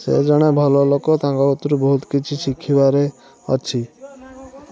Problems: none marked